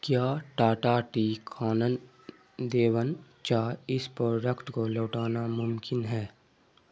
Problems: none marked